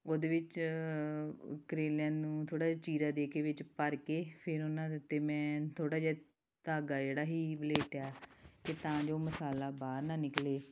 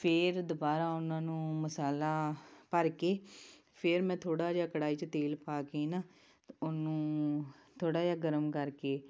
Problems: background sounds at intervals